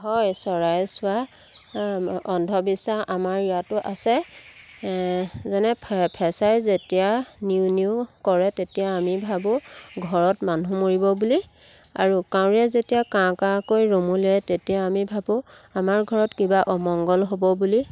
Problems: background sounds at intervals